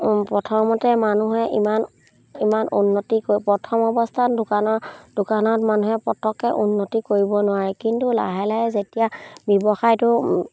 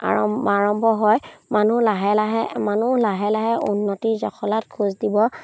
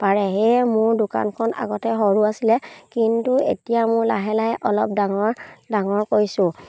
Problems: none marked